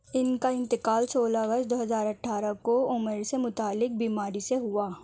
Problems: none marked